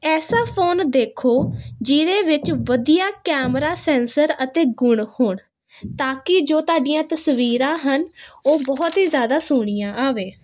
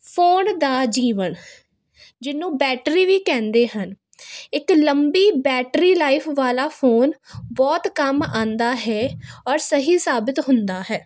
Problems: constant background noise